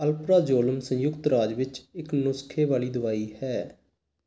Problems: background sounds at intervals